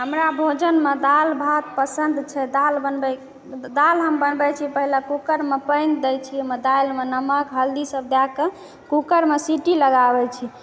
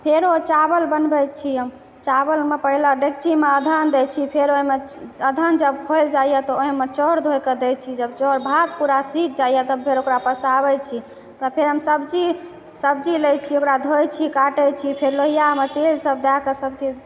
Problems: background sounds at intervals, background conversations at intervals